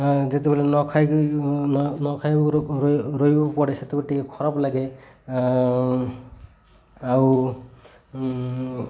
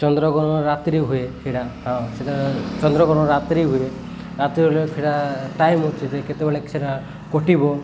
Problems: none marked